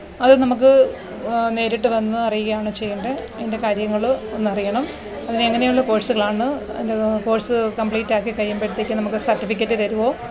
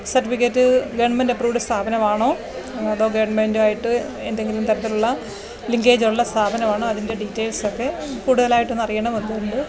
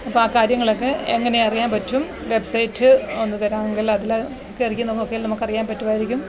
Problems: constant background noise